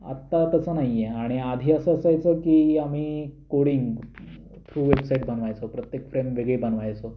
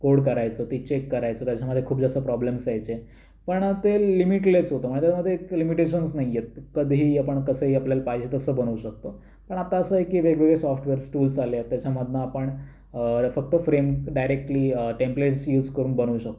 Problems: constant background noise